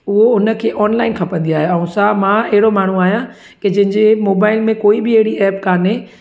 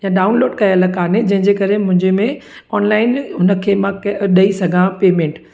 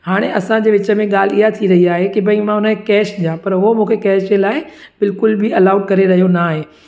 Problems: echo